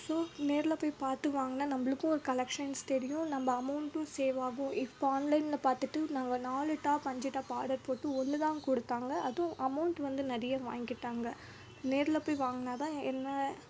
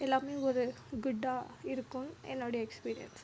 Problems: background sounds at intervals